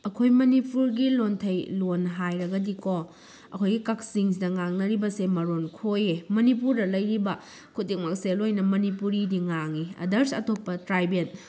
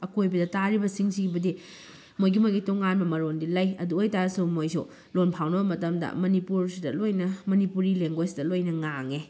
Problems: none marked